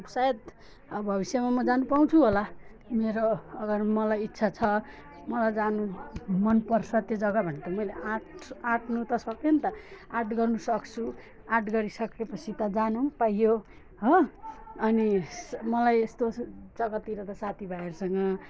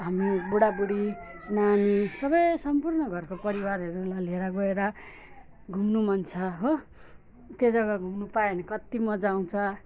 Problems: background sounds at intervals, background conversations at intervals, low volume